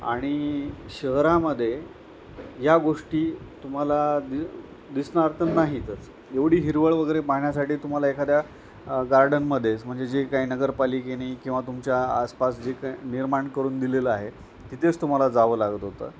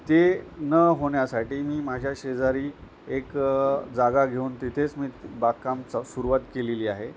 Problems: none marked